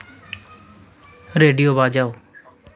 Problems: none marked